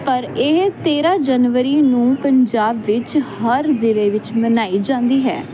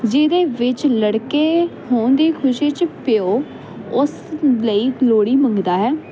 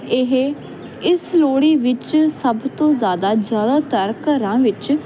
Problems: constant background noise